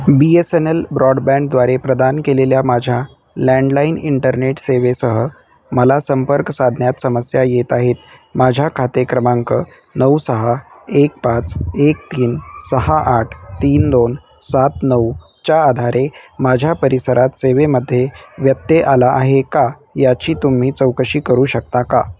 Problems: constant background noise